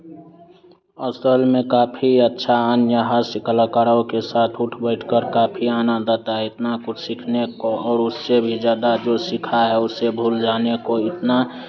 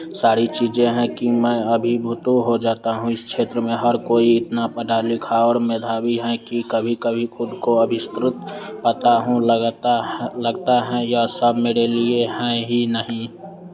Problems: constant background noise, background conversations at intervals